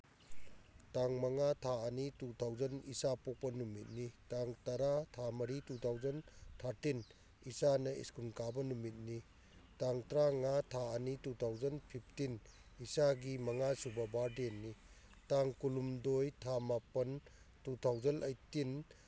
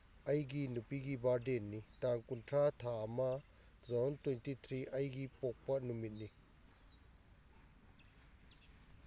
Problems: none marked